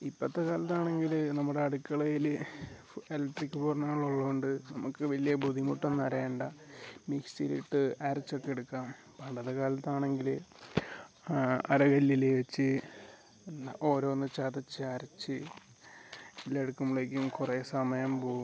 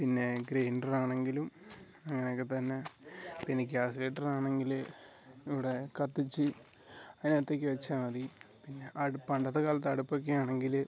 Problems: background sounds at intervals, low volume